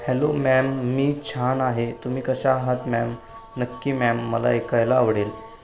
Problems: constant background noise